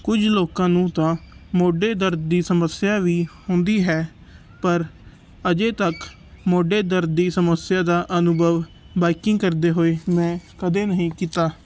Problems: background sounds at intervals